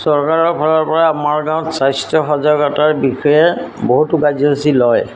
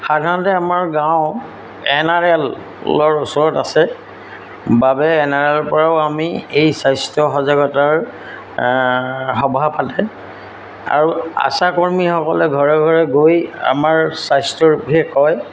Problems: constant background noise